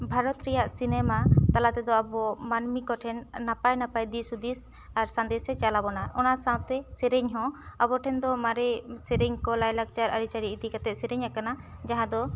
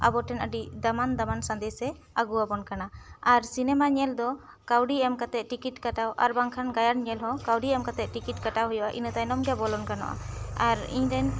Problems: background sounds at intervals